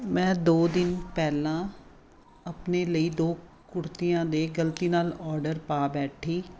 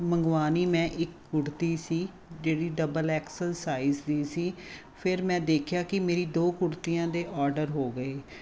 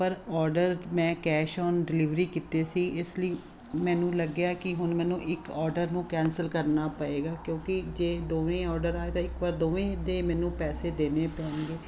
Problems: none marked